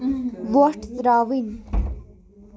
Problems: background sounds at intervals, background conversations at intervals